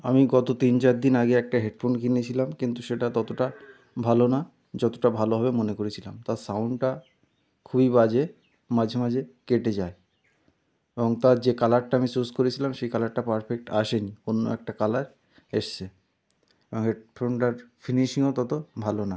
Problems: none marked